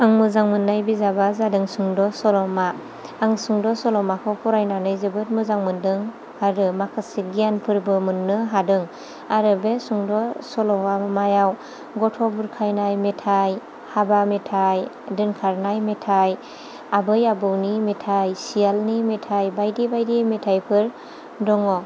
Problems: low volume